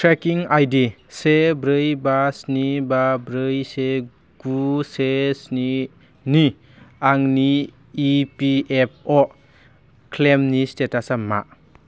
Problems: low volume